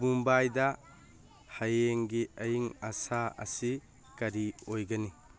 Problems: background conversations at intervals